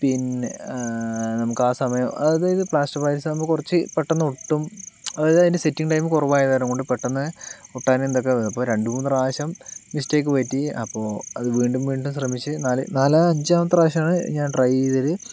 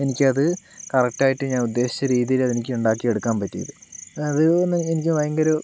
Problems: constant background noise